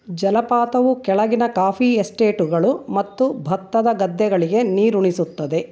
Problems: none marked